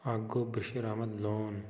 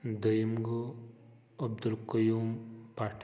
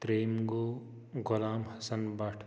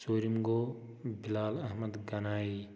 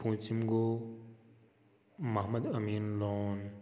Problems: constant background noise, echo